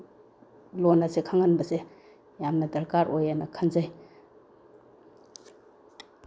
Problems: background sounds at intervals